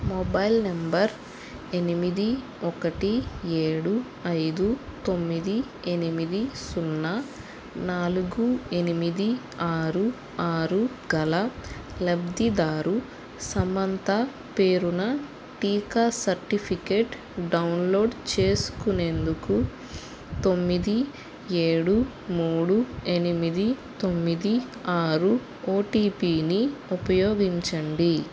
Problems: constant background noise